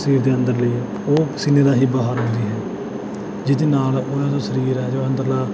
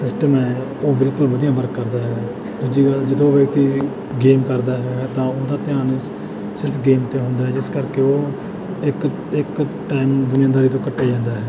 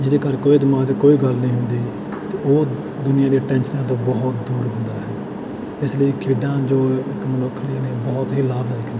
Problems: background sounds at intervals